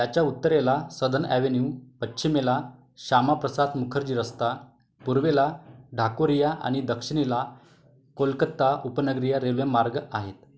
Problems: background sounds at intervals